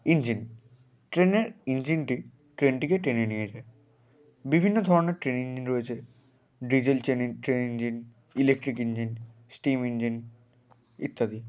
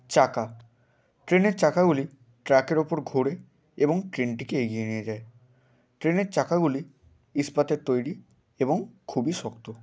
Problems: constant background noise